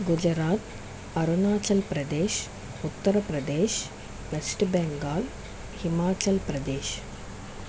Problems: constant background noise